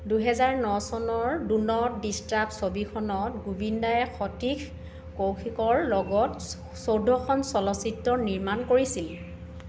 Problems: background sounds at intervals, background conversations at intervals